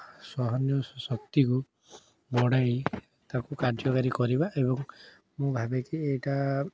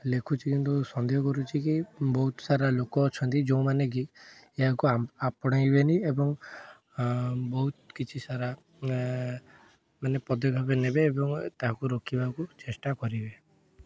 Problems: background sounds at intervals, background conversations at intervals